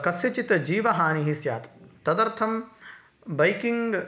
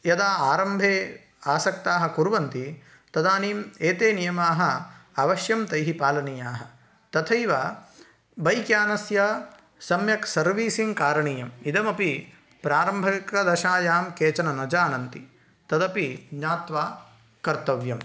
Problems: none marked